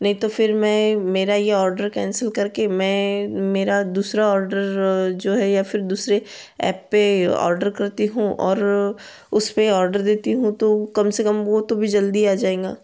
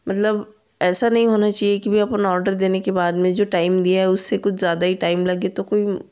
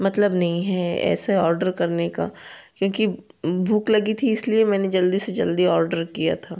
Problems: constant background noise